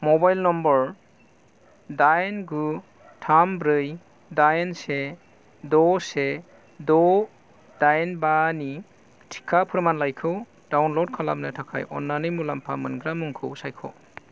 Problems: none marked